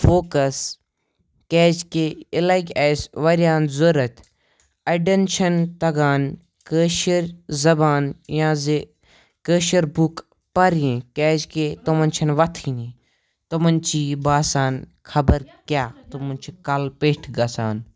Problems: background conversations at intervals